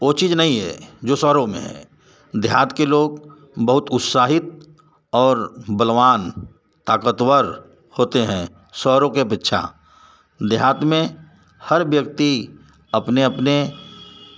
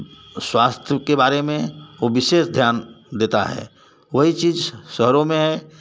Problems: none marked